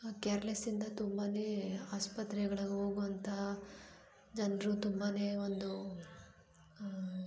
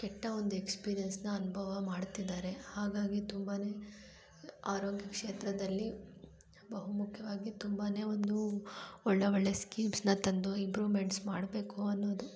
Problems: low volume